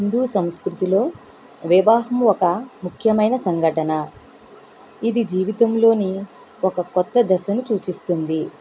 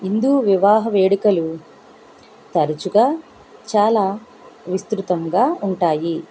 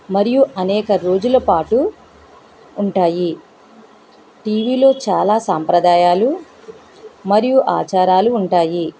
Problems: constant background noise